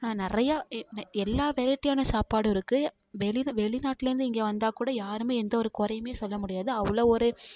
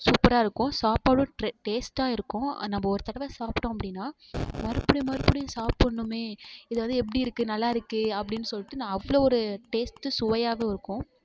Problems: constant background noise